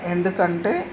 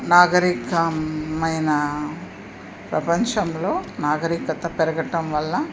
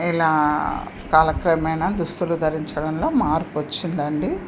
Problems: constant background noise